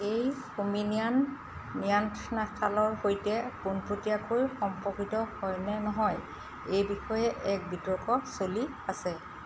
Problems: none marked